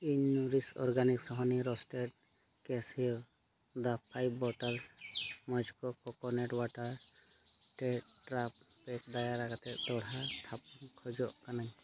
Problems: background sounds at intervals, low volume